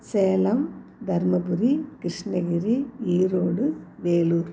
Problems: none marked